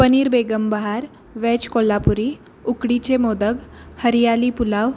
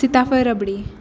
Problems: constant background noise